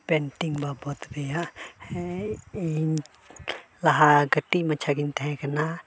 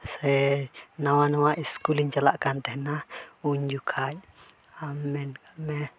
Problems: background sounds at intervals